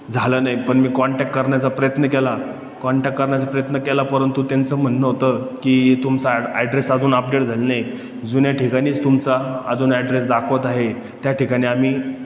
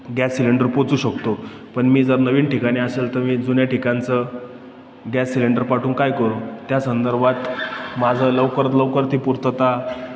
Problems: none marked